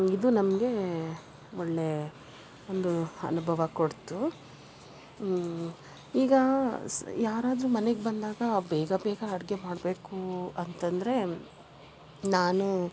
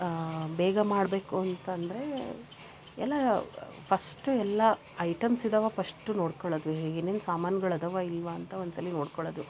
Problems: background sounds at intervals